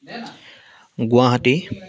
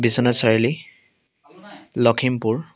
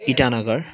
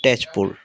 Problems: background sounds at intervals, continuous background conversations